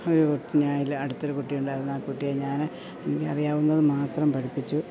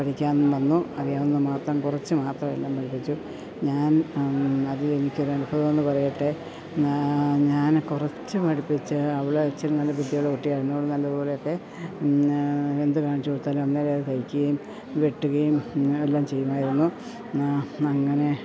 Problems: background sounds at intervals